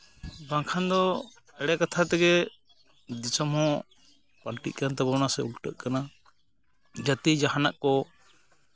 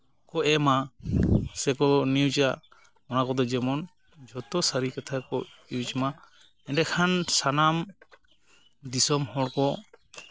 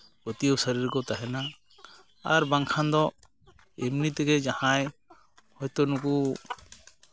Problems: constant background noise, background conversations at intervals